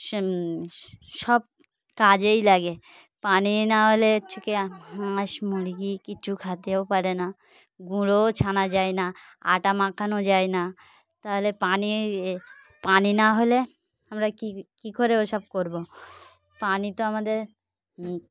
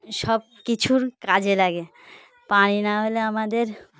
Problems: background sounds at intervals